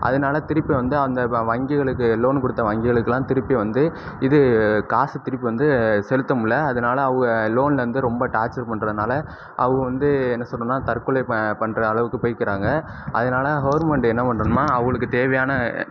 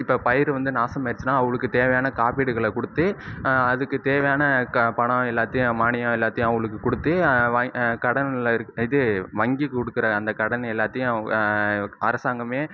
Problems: none marked